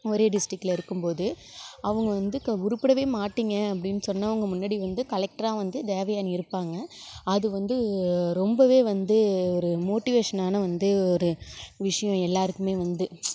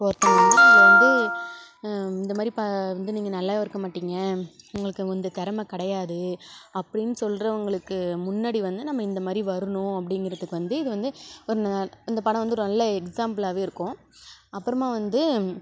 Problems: none marked